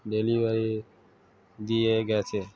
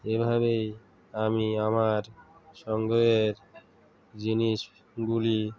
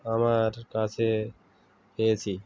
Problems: constant background noise, continuous background conversations